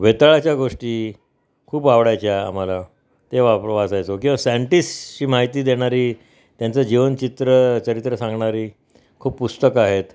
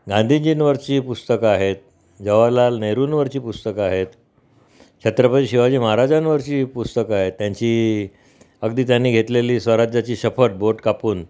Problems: background sounds at intervals